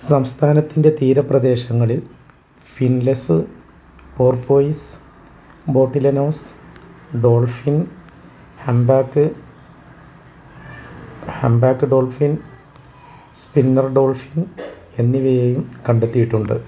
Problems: none marked